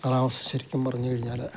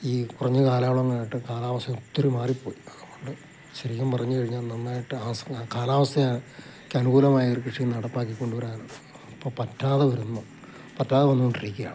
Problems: constant background noise, low volume